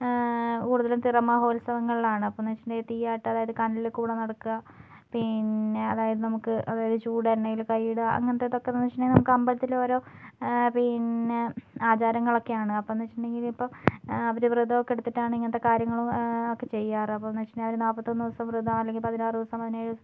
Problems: low volume